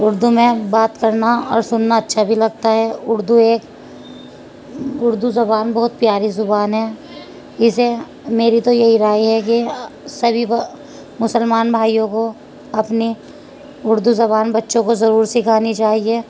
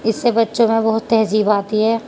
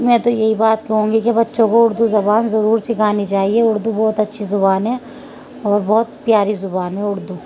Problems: constant background noise